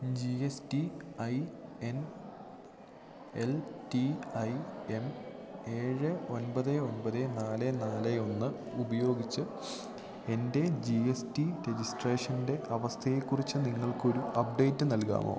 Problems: constant background noise